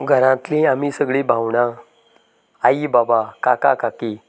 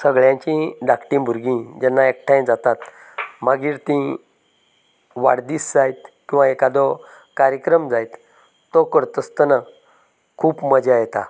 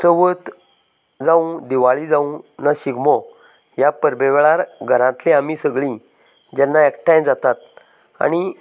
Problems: constant background noise, background conversations at intervals